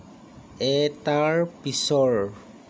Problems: none marked